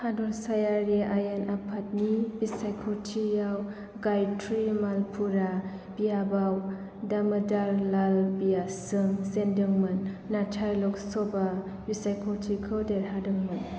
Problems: constant background noise